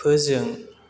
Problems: constant background noise